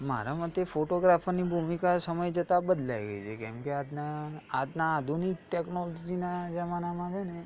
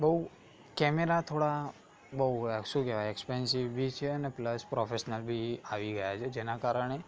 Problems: continuous background conversations